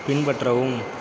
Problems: constant background noise